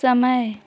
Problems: none marked